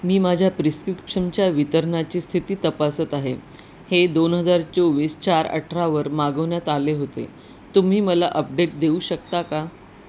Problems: none marked